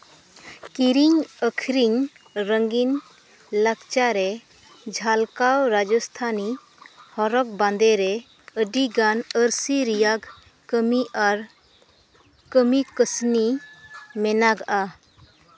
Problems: none marked